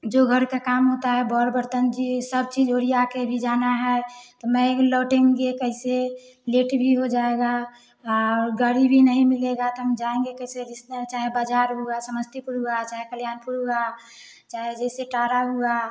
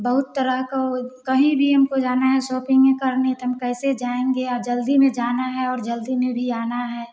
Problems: none marked